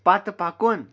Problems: none marked